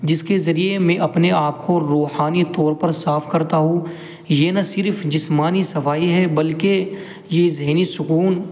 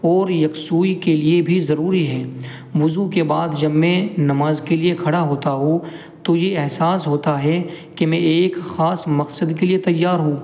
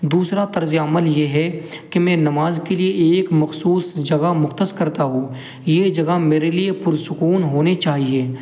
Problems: constant background noise